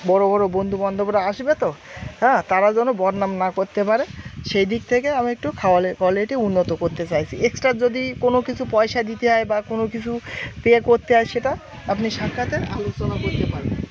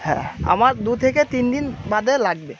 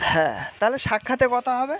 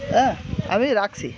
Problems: none marked